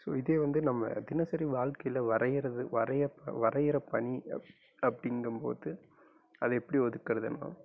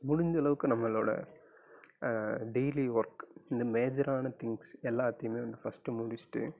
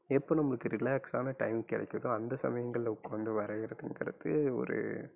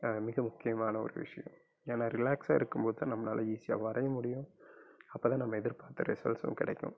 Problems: low volume